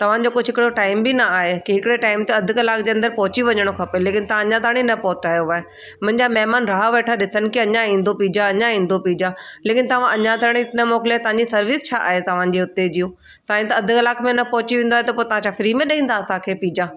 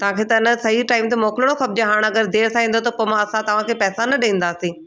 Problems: constant background noise